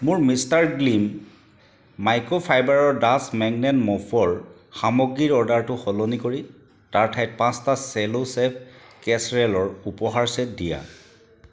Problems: constant background noise